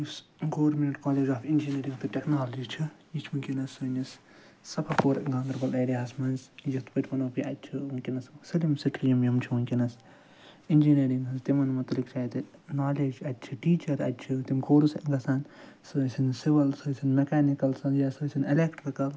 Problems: background sounds at intervals, low volume